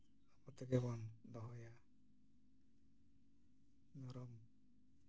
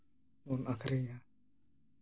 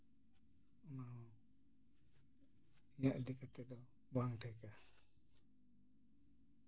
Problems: low volume